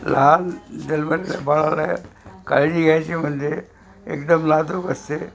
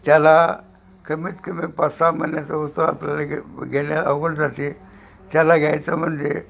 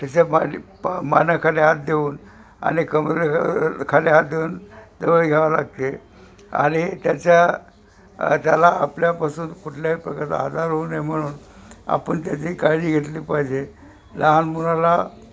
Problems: constant background noise, background conversations at intervals